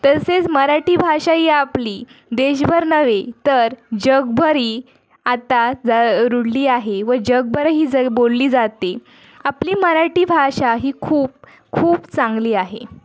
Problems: background sounds at intervals, continuous background conversations